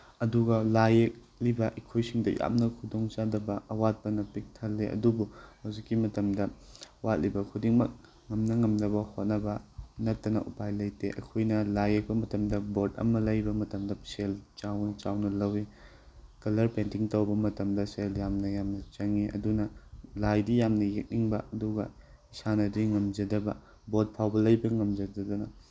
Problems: background sounds at intervals